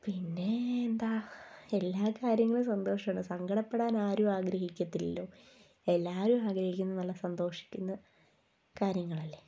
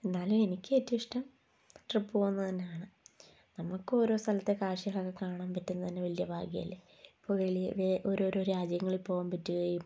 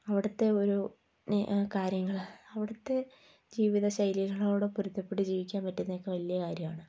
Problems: low volume